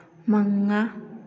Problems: low volume